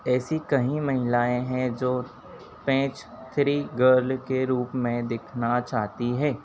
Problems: constant background noise